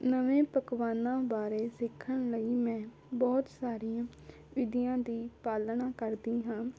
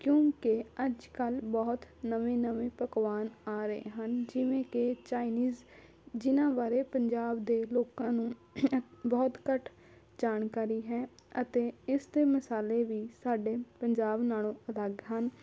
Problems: constant background noise